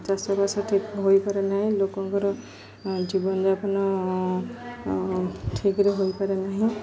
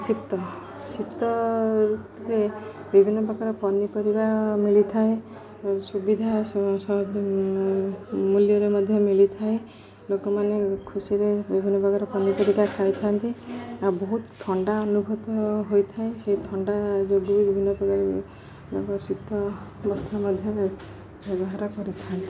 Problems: constant background noise, continuous background conversations